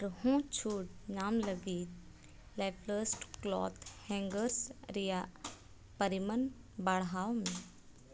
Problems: none marked